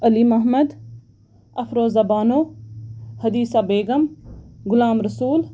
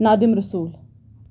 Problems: none marked